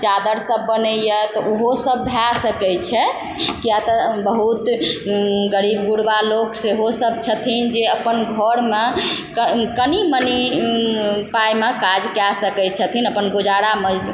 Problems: constant background noise